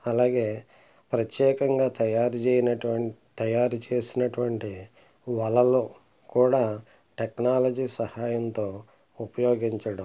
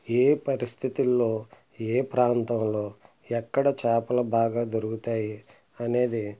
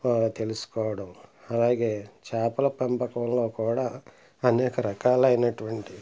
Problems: none marked